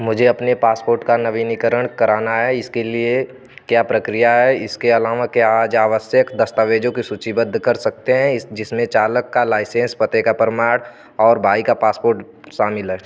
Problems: none marked